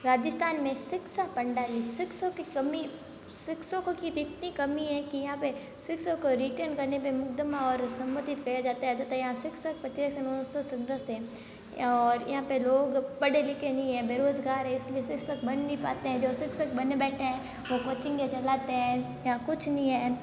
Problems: constant background noise